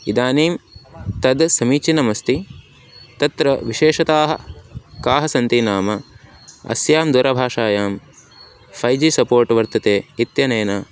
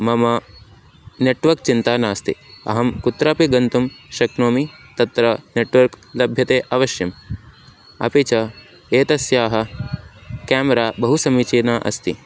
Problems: none marked